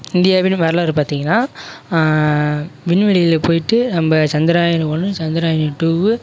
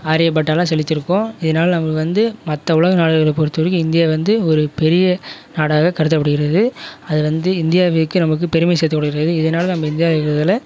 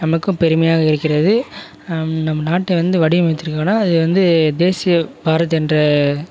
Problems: none marked